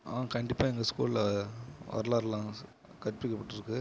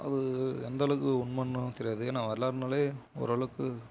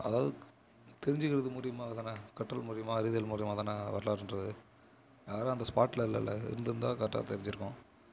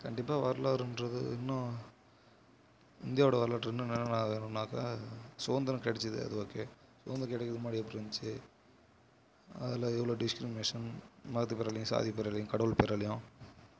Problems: constant background noise